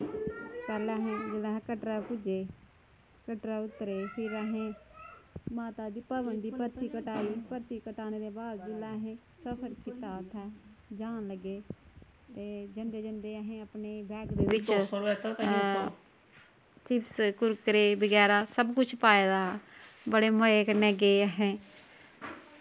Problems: none marked